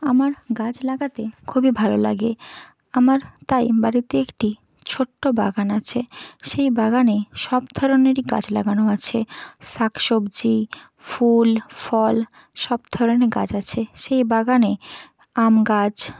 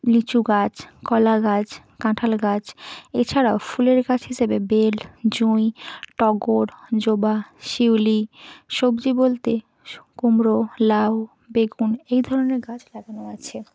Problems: constant background noise